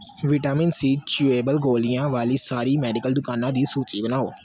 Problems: background sounds at intervals